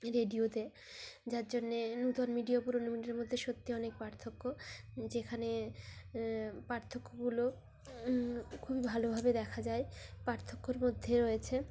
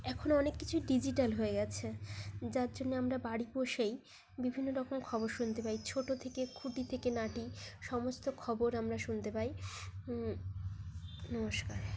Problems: constant background noise, continuous background conversations